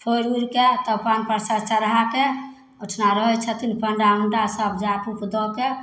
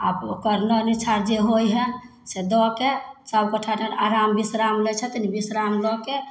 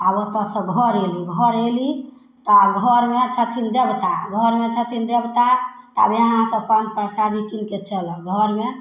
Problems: none marked